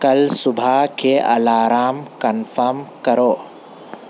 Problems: constant background noise